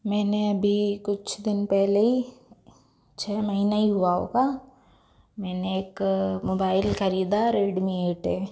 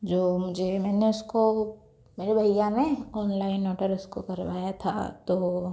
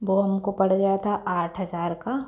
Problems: background sounds at intervals